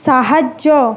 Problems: constant background noise